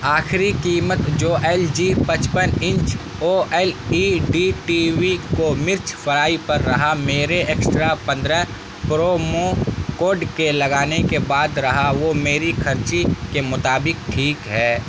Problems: constant background noise